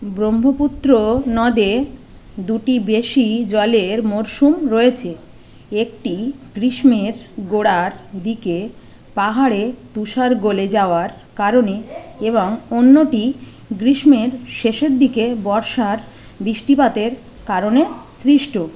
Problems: constant background noise